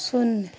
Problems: none marked